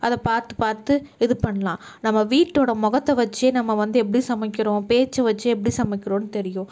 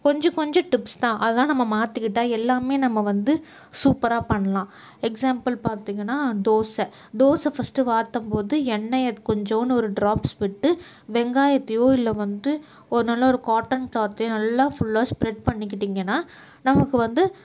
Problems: none marked